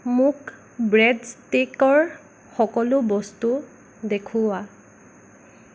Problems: none marked